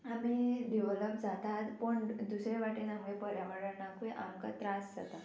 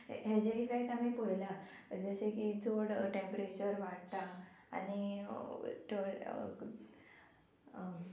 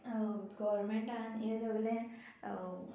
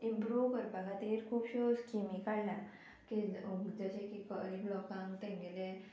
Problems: constant background noise